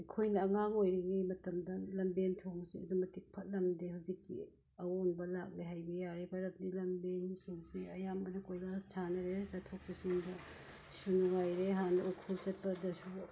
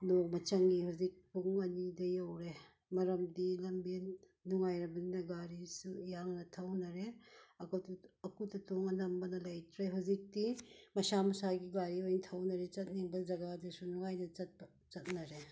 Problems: background sounds at intervals